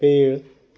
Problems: none marked